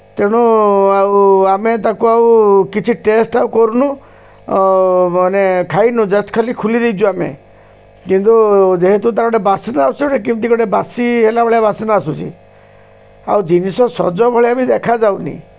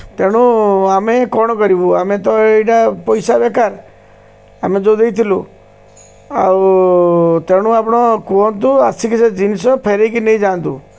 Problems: constant background noise